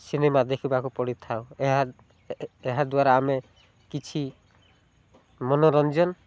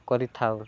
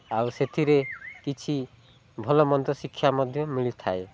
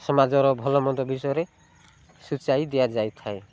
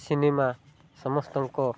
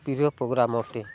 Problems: none marked